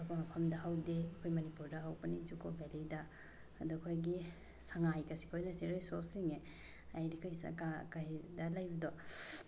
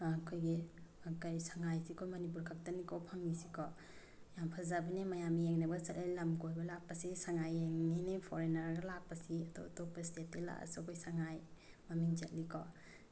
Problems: none marked